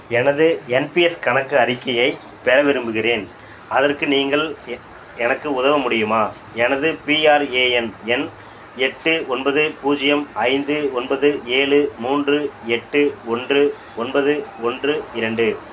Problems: none marked